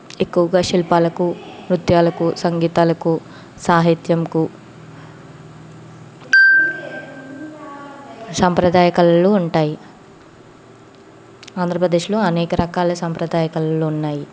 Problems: background sounds at intervals, background conversations at intervals